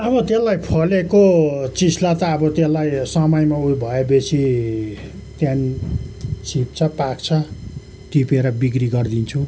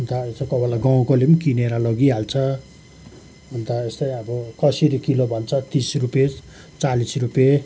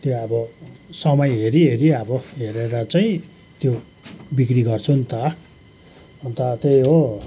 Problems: none marked